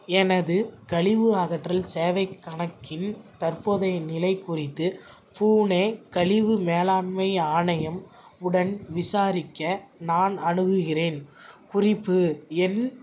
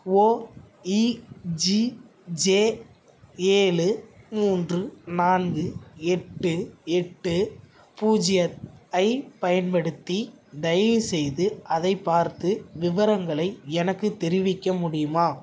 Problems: none marked